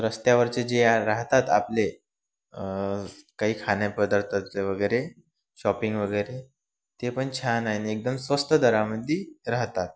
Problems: none marked